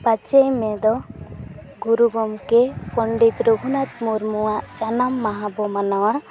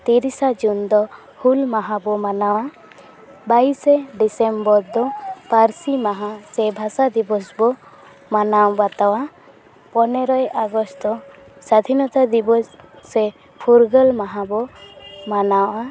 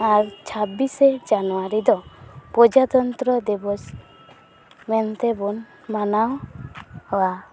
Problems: continuous background conversations